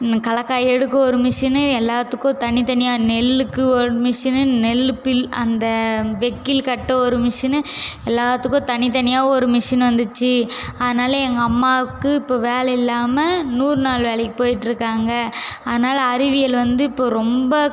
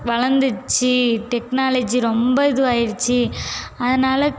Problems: background sounds at intervals